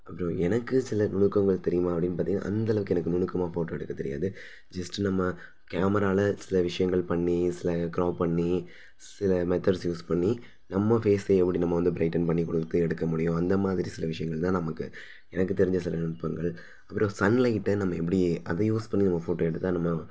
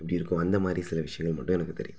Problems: none marked